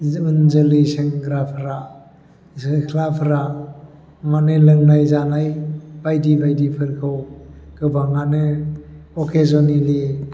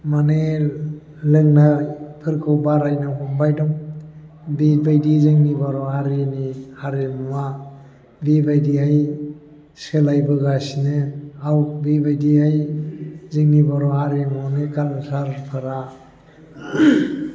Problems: constant background noise